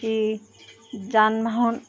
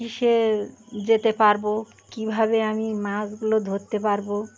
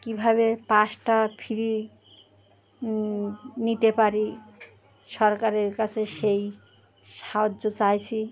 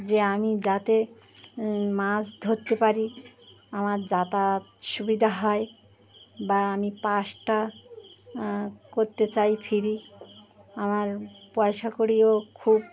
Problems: constant background noise, background conversations at intervals